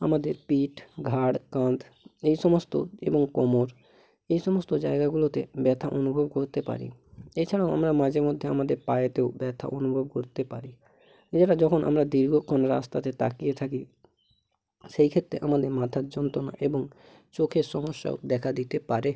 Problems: background sounds at intervals